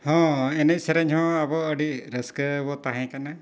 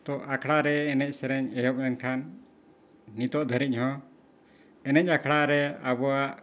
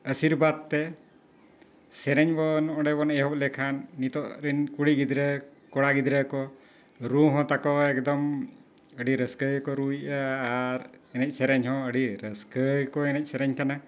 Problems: none marked